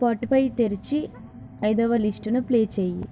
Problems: constant background noise